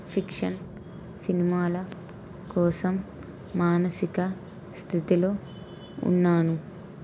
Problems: constant background noise